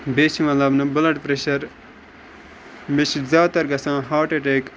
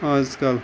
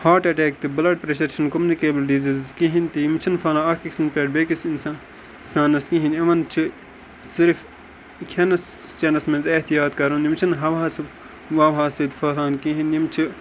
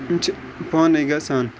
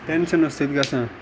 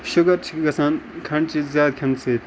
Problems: constant background noise, background conversations at intervals